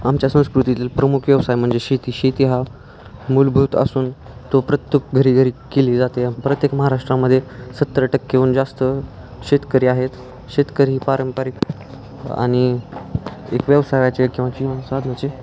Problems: none marked